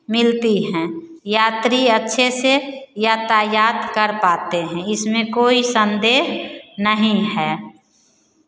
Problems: none marked